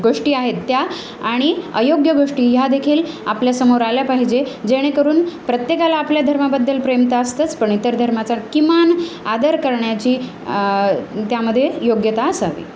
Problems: none marked